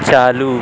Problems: constant background noise